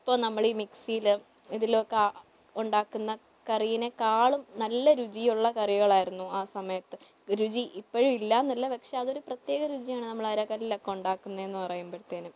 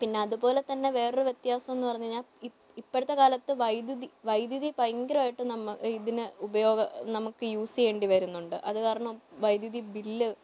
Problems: low volume